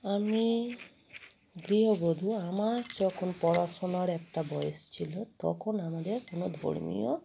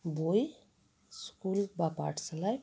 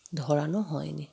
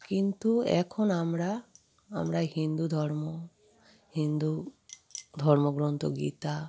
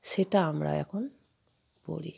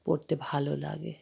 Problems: background sounds at intervals